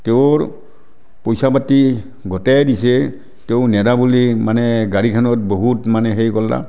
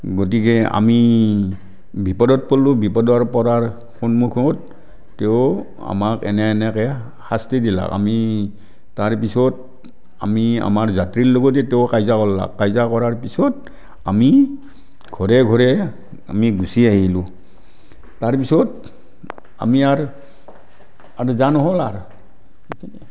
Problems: none marked